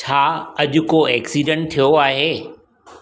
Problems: echo